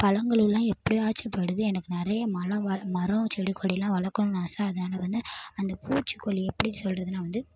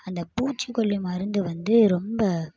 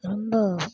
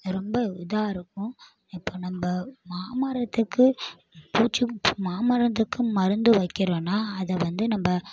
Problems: background sounds at intervals